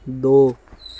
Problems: constant background noise